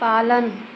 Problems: constant background noise